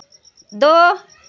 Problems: none marked